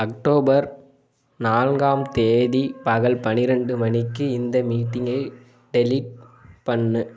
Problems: constant background noise